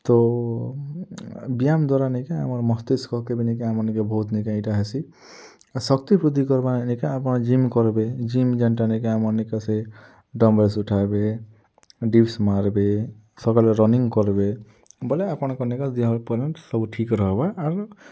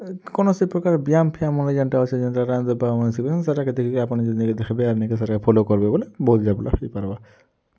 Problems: low volume